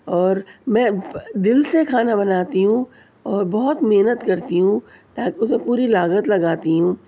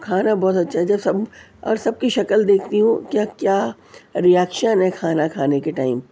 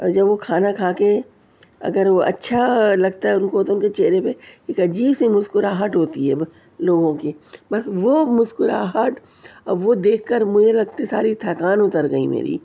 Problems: none marked